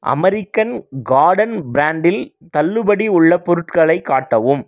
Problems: none marked